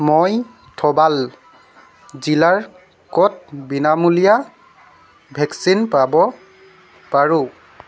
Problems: constant background noise